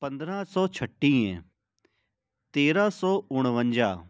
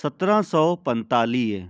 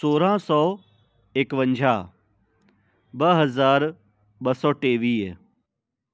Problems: none marked